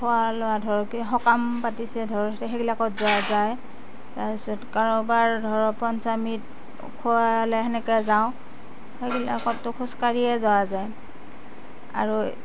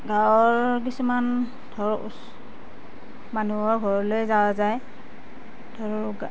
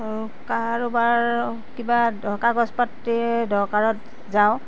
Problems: background sounds at intervals